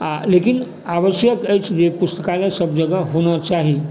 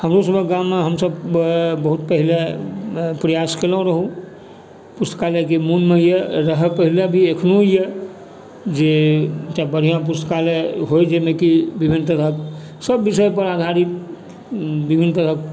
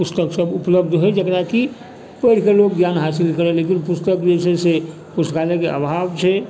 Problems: background sounds at intervals